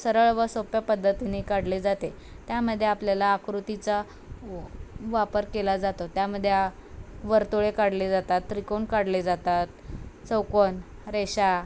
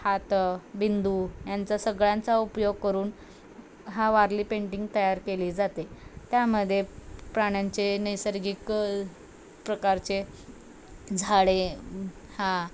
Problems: background sounds at intervals